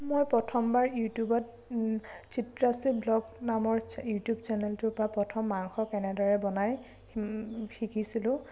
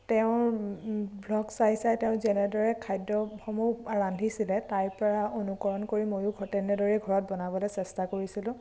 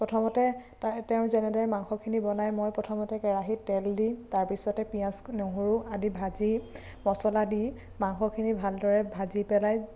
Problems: none marked